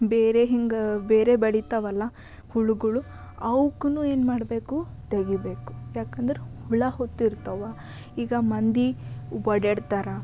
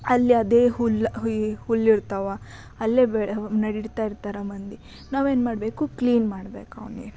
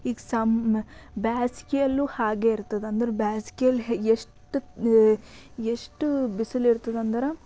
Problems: none marked